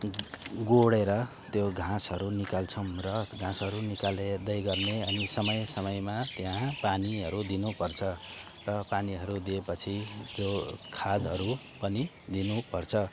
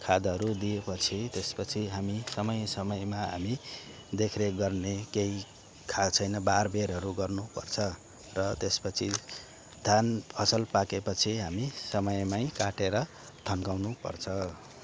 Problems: constant background noise